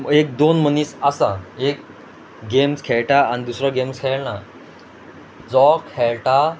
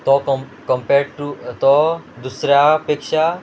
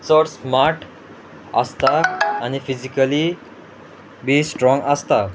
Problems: background sounds at intervals